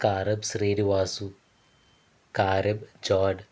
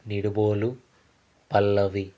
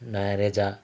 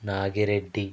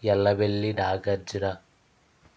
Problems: none marked